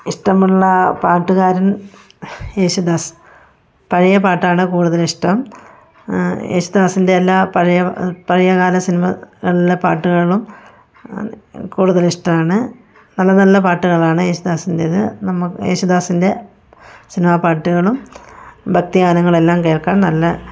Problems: none marked